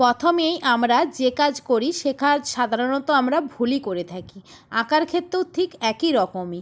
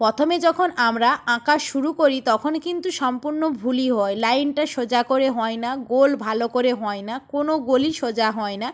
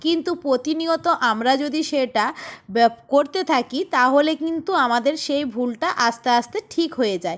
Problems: none marked